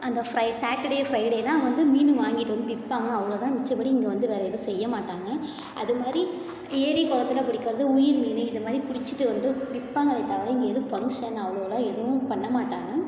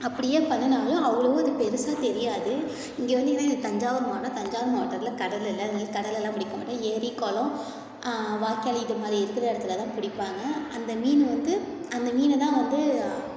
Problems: continuous background conversations, echo